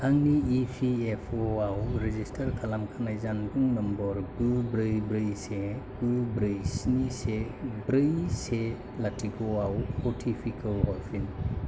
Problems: constant background noise